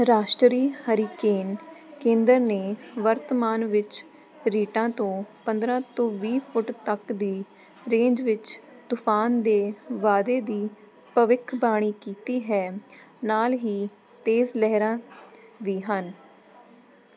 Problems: constant background noise